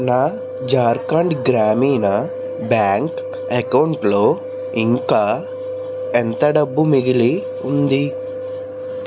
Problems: constant background noise, continuous background conversations